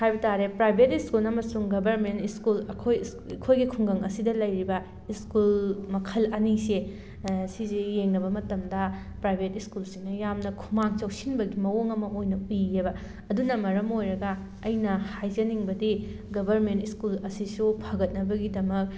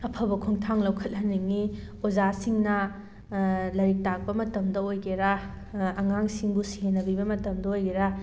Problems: background sounds at intervals